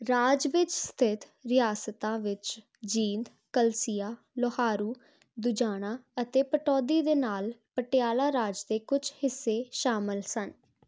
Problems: none marked